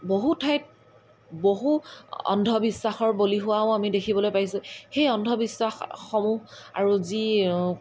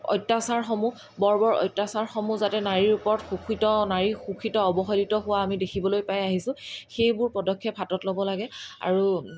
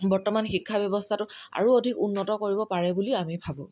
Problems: background sounds at intervals